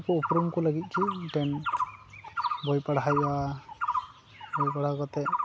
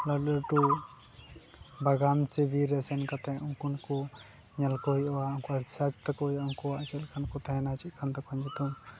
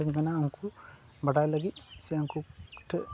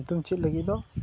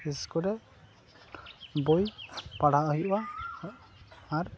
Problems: background sounds at intervals